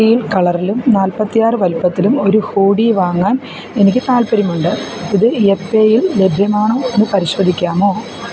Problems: constant background noise